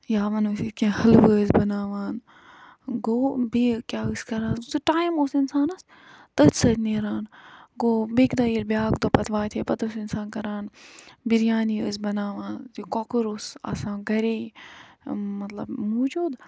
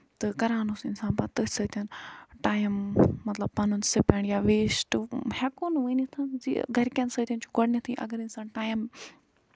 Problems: background sounds at intervals